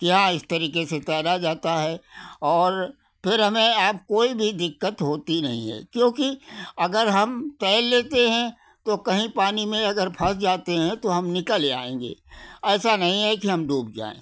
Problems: none marked